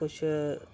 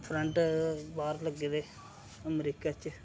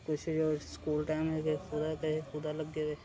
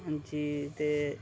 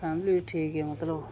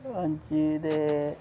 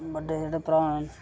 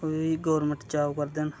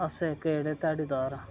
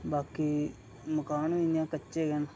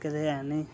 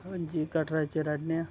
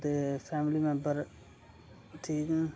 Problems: none marked